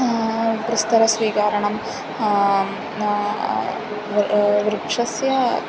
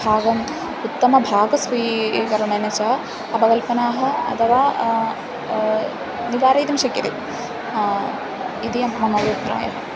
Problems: none marked